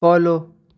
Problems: background sounds at intervals